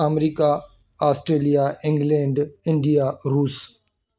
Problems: background sounds at intervals